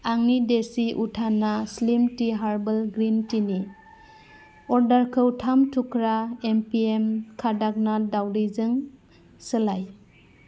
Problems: constant background noise